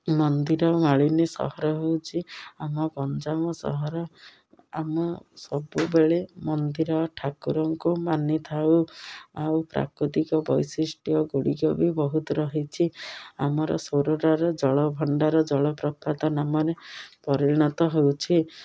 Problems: none marked